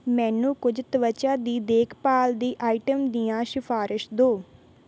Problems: background sounds at intervals